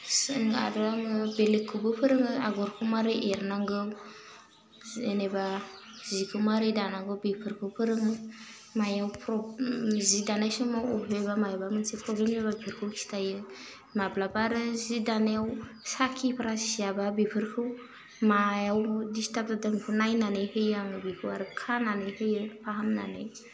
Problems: constant background noise